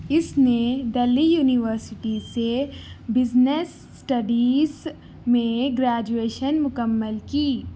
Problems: none marked